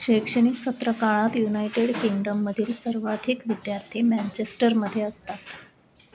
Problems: constant background noise